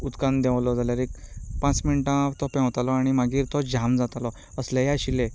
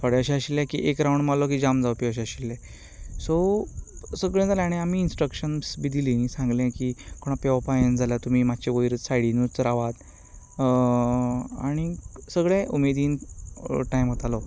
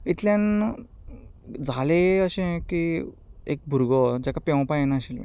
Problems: background conversations at intervals